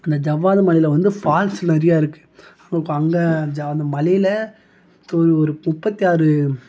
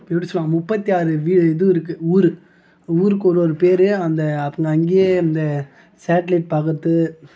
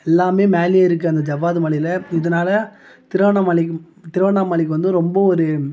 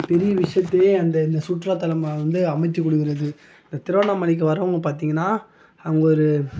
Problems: none marked